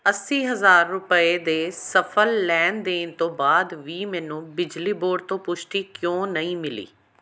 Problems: none marked